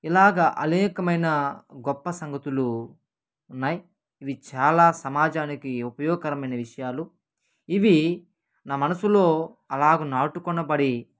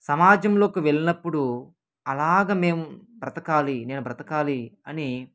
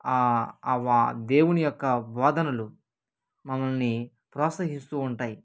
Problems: none marked